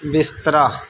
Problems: none marked